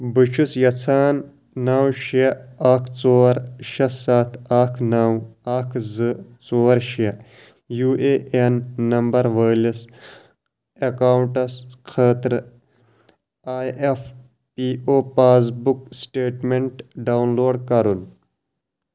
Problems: constant background noise